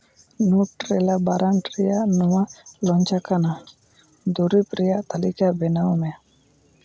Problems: none marked